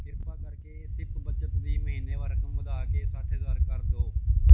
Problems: background sounds at intervals